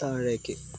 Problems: none marked